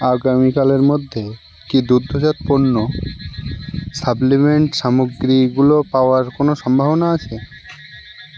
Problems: constant background noise